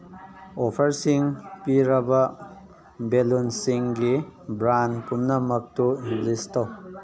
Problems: background conversations at intervals